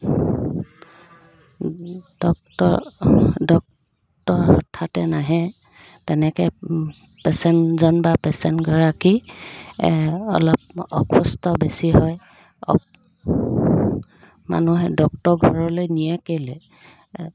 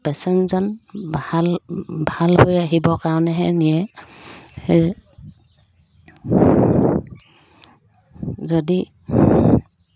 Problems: background sounds at intervals